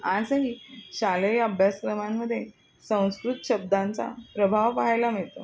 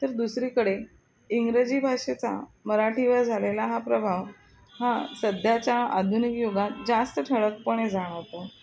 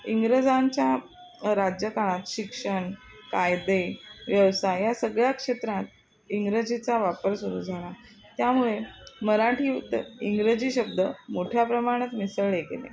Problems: constant background noise, continuous background conversations